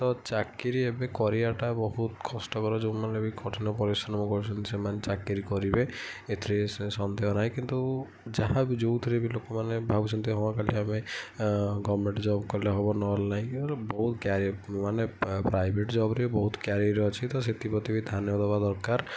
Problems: none marked